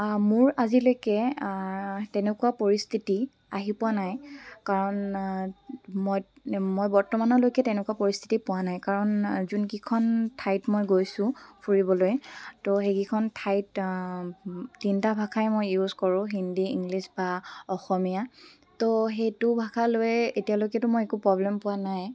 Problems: background sounds at intervals